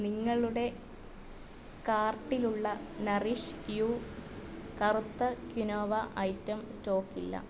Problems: constant background noise, low volume